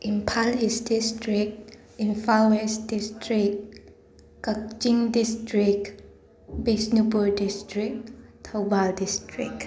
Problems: constant background noise, continuous background conversations